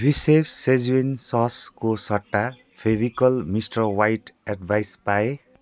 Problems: none marked